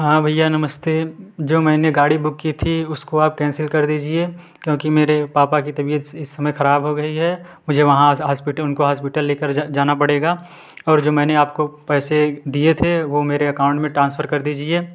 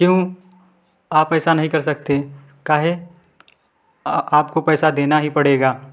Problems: background sounds at intervals, background conversations at intervals